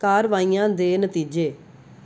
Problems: none marked